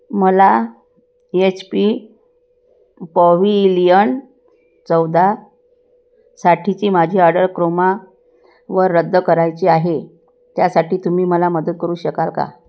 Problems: none marked